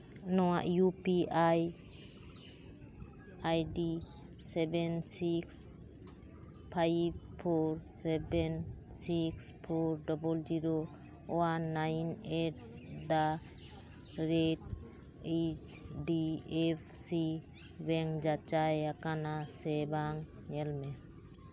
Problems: constant background noise, background conversations at intervals